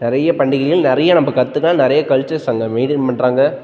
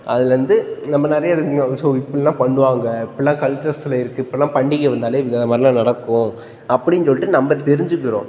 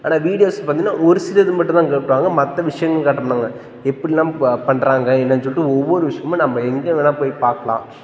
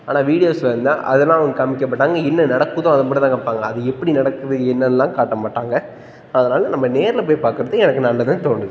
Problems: constant background noise